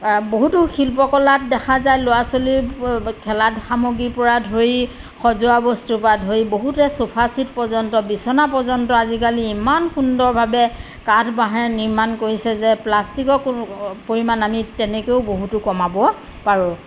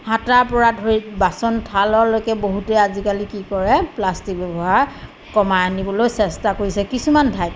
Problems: none marked